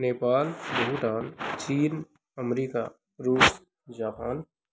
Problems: none marked